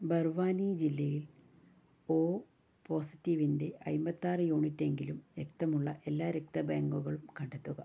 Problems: low volume